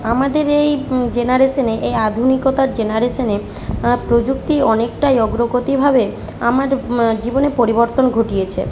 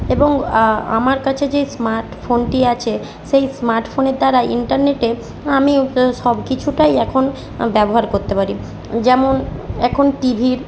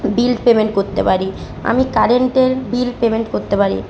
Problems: constant background noise